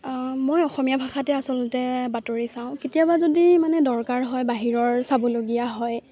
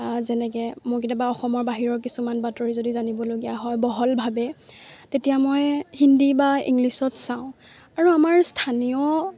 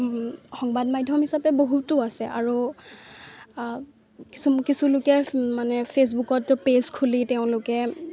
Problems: constant background noise, background conversations at intervals